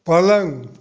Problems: none marked